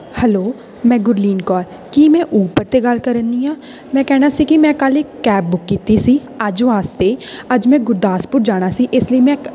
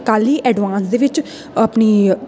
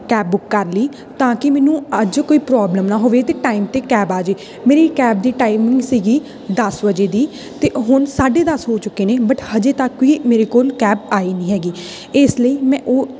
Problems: constant background noise